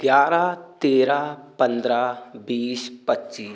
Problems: constant background noise